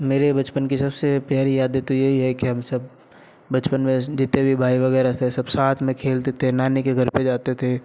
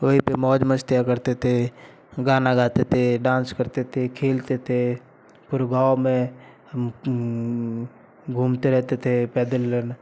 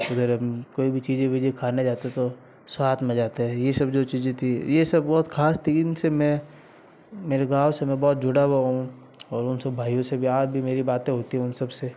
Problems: constant background noise